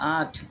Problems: none marked